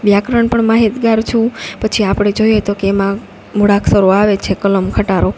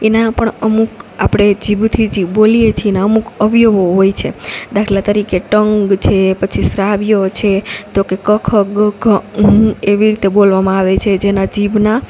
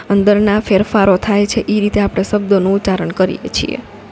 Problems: none marked